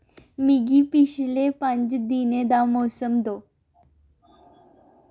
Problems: none marked